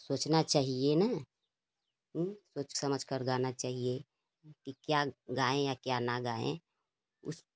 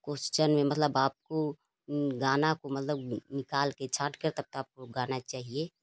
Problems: none marked